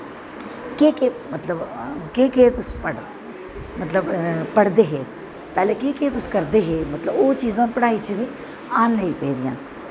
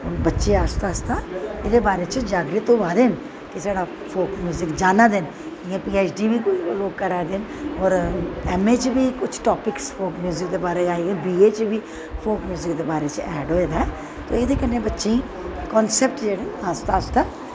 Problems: constant background noise, echo